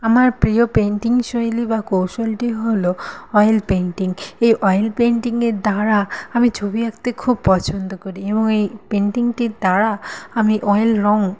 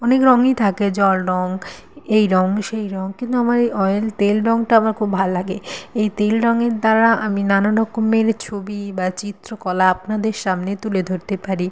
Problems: none marked